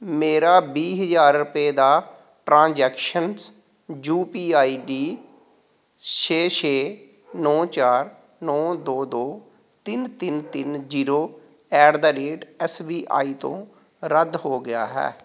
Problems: background sounds at intervals